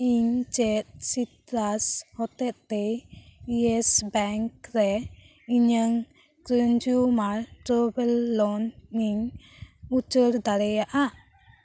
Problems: background sounds at intervals